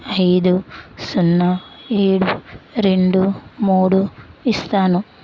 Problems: constant background noise